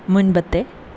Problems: constant background noise